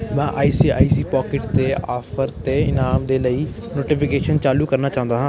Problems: continuous background conversations